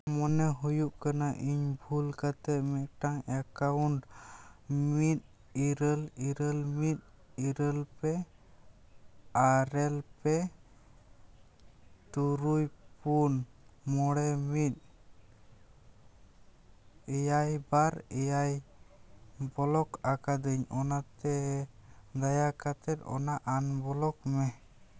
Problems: background sounds at intervals